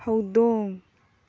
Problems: low volume